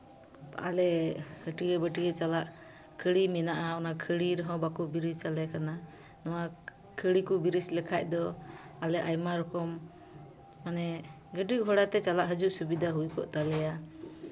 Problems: constant background noise